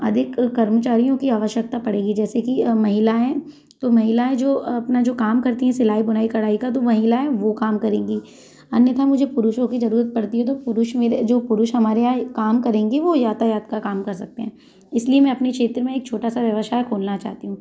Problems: constant background noise, background conversations at intervals